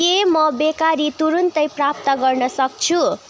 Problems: continuous background conversations